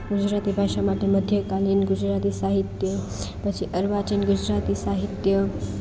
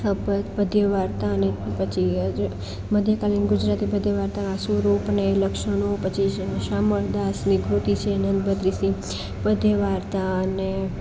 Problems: constant background noise, continuous background conversations